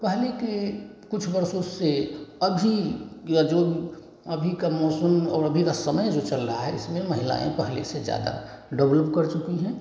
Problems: none marked